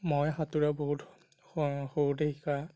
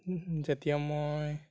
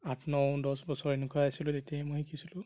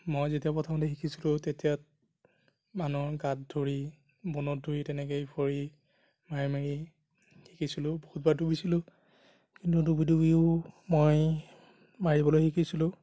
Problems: none marked